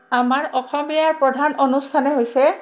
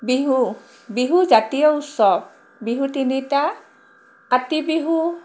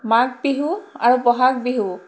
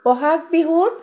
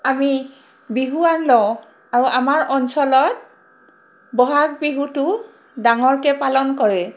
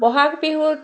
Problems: constant background noise